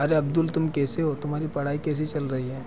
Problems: continuous background conversations